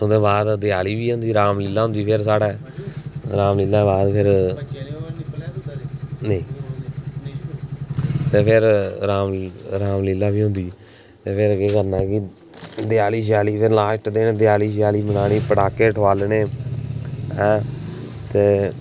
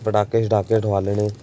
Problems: background sounds at intervals